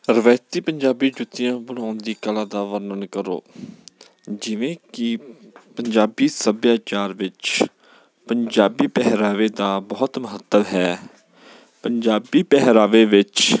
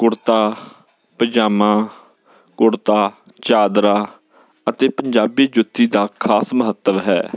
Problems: none marked